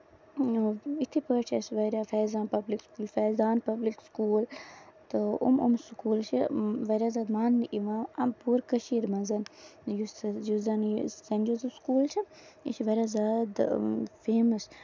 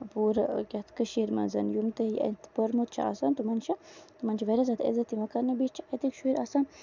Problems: background sounds at intervals, low volume